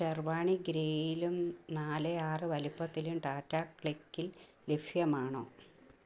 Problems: none marked